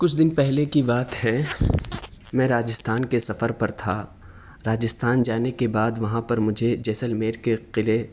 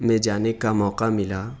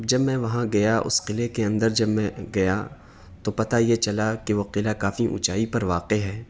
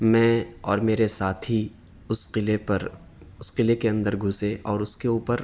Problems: none marked